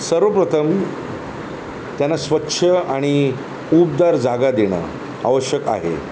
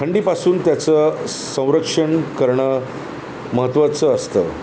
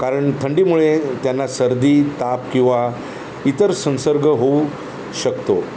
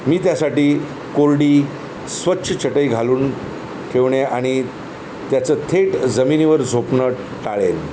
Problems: none marked